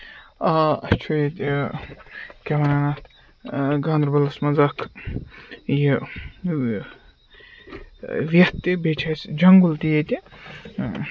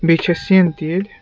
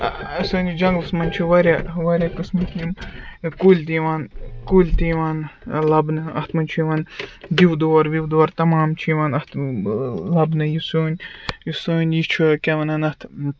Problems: background sounds at intervals